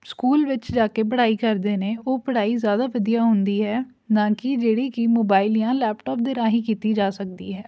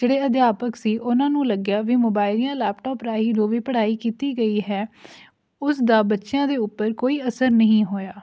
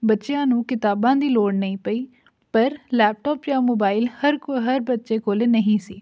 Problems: none marked